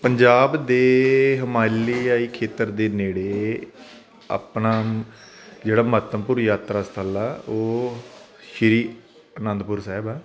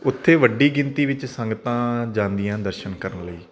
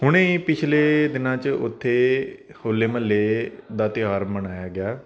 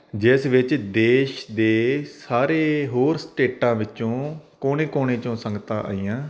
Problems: constant background noise